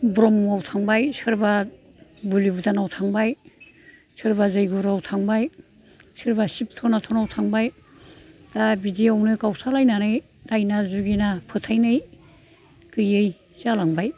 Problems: none marked